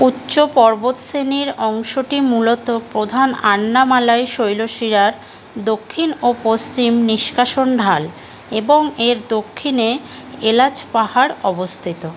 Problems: constant background noise